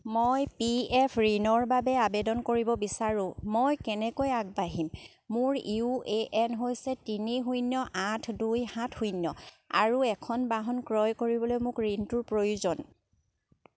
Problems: none marked